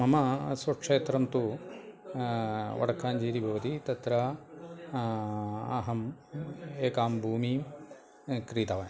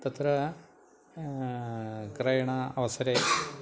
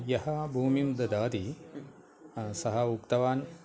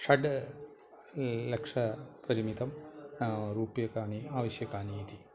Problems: continuous background conversations